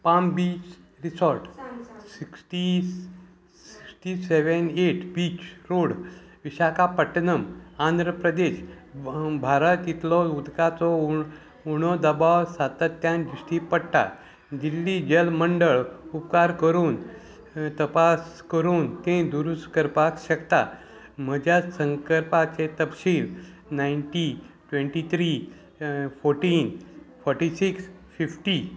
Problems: background conversations at intervals